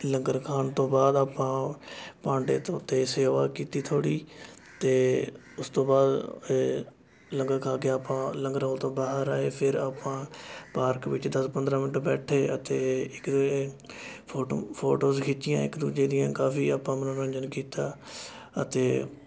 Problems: constant background noise, continuous background conversations